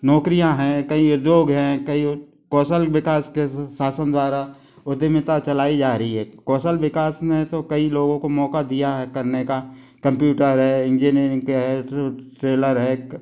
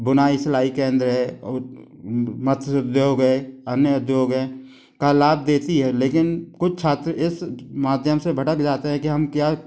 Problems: constant background noise